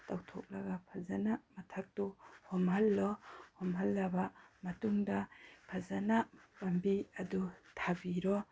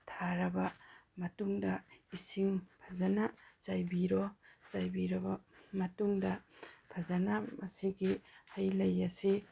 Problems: none marked